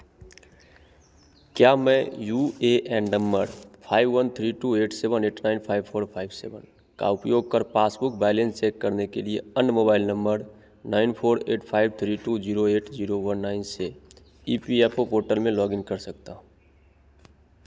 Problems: constant background noise, echo